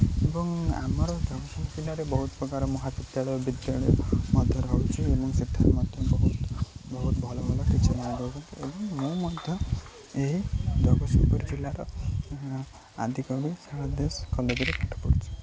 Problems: constant background noise, low volume